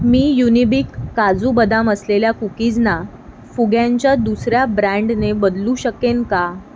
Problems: background sounds at intervals